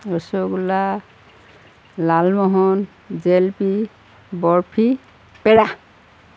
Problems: none marked